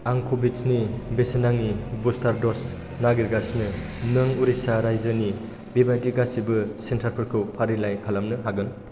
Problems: constant background noise